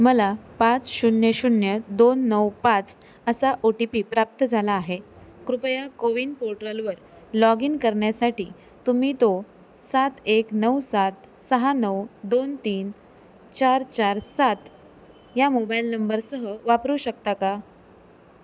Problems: constant background noise